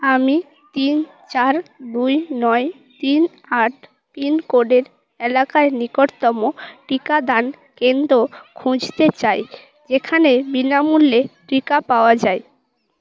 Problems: background conversations at intervals